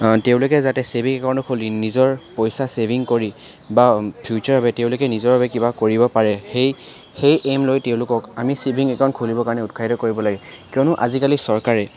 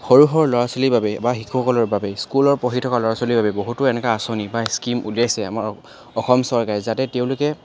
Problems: constant background noise, background conversations at intervals